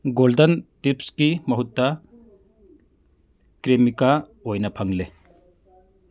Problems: background sounds at intervals